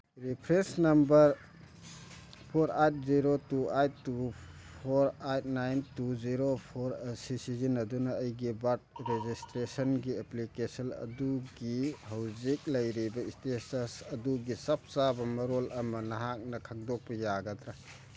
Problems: none marked